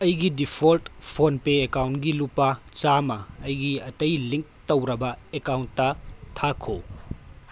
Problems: none marked